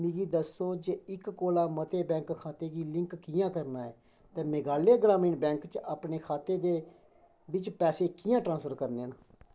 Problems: none marked